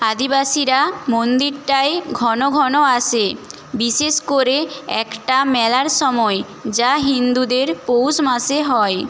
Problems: none marked